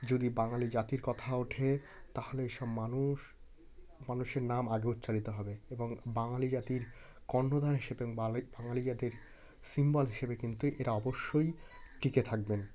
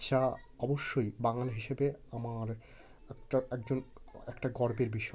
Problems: constant background noise, continuous background conversations